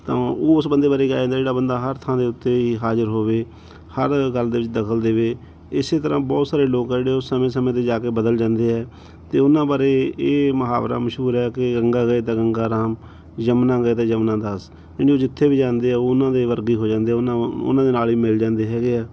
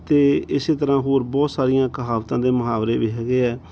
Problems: background sounds at intervals